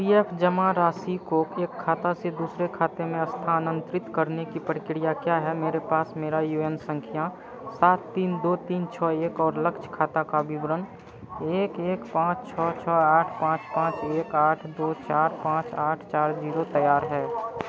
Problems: constant background noise